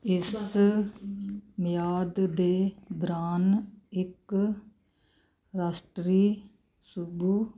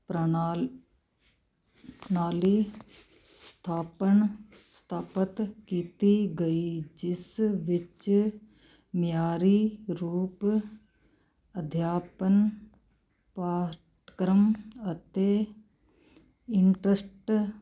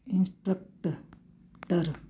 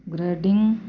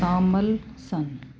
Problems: constant background noise